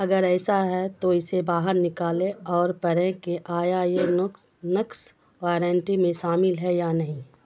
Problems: constant background noise